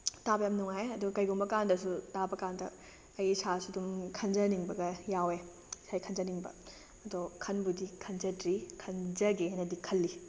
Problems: constant background noise